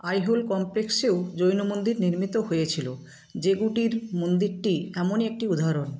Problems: constant background noise